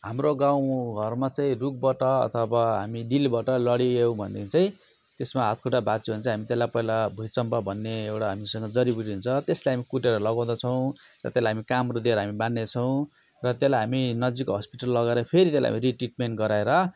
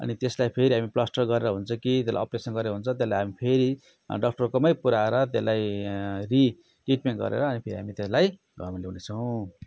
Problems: none marked